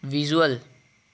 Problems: none marked